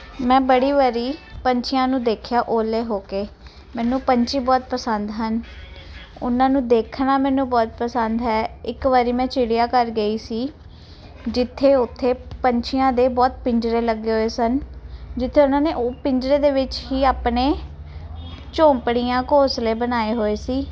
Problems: background sounds at intervals